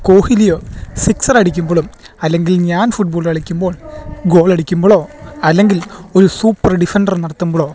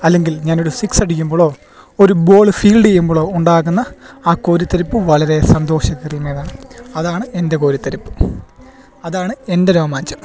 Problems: constant background noise